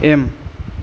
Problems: none marked